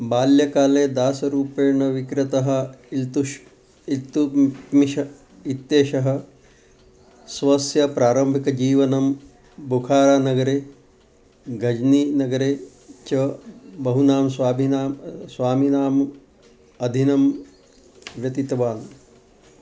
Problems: constant background noise